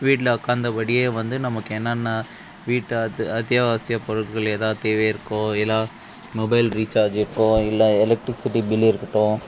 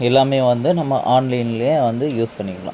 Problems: none marked